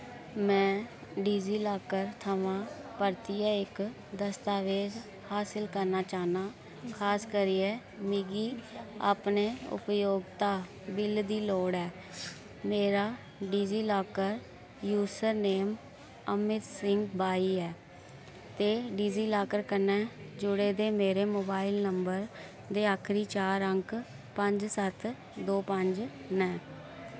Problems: background sounds at intervals